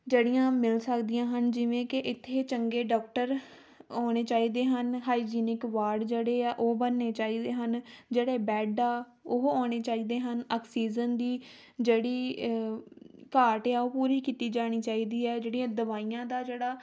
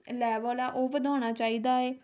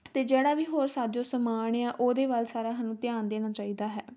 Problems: none marked